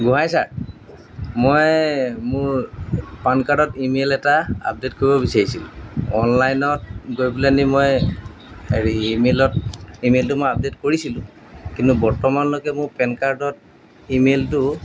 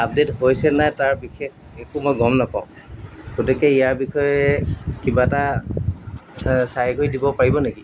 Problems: background sounds at intervals